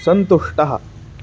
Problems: none marked